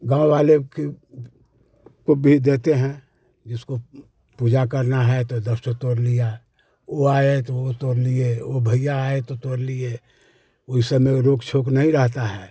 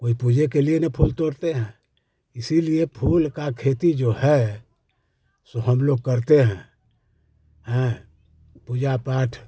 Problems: none marked